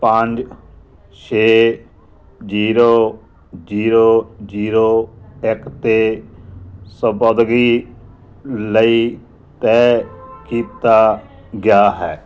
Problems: background conversations at intervals